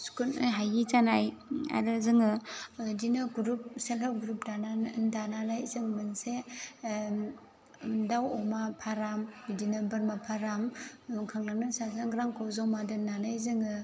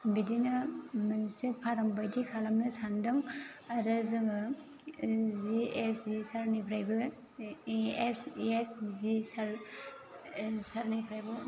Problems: constant background noise